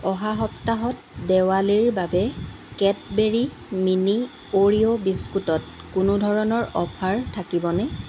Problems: none marked